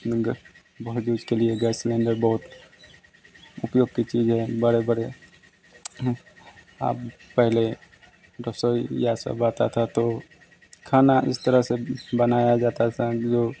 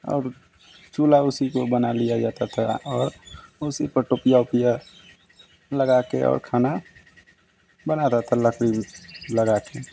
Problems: constant background noise